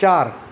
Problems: none marked